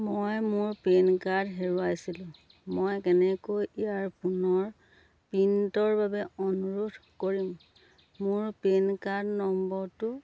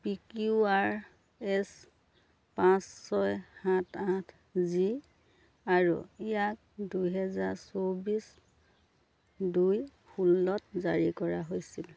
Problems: low volume